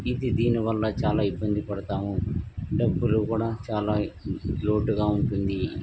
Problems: background sounds at intervals